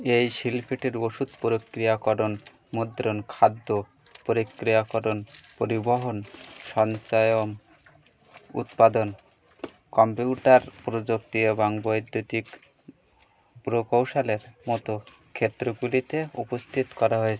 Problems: constant background noise